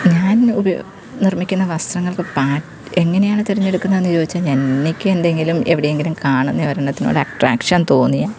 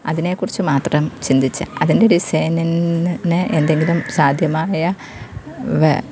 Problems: none marked